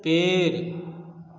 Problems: constant background noise